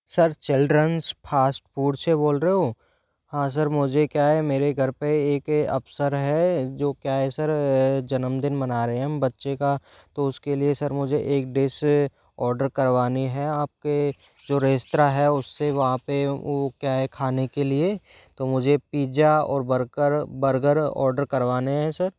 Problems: background sounds at intervals